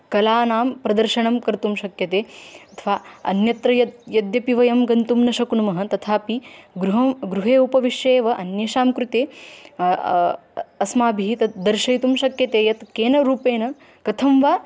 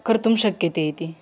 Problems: background sounds at intervals